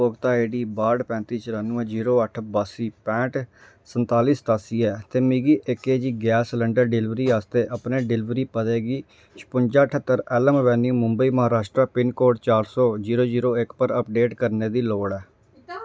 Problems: none marked